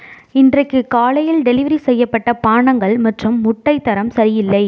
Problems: none marked